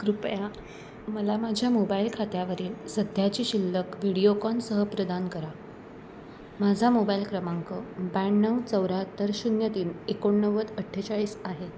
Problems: none marked